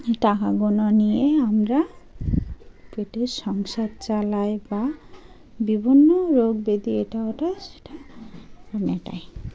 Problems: constant background noise